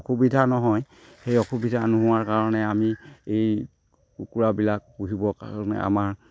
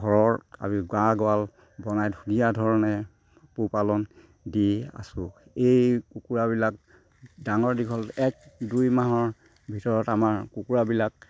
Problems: constant background noise, background conversations at intervals